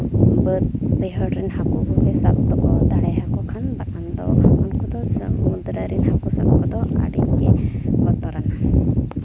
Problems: constant background noise